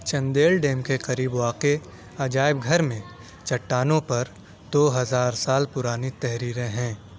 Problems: constant background noise, background conversations at intervals